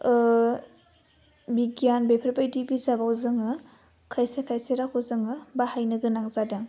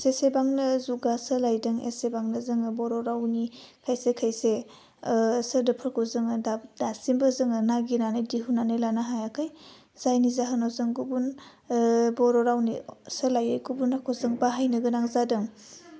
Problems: none marked